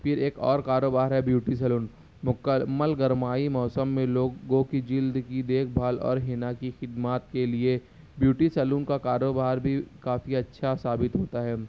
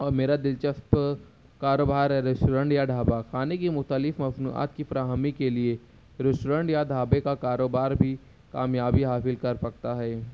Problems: none marked